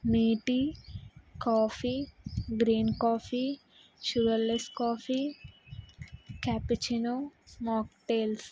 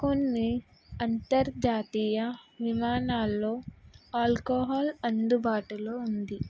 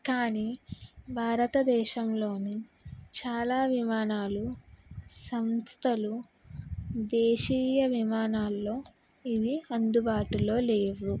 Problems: background sounds at intervals